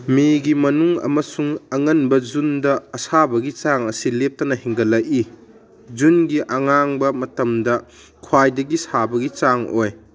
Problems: none marked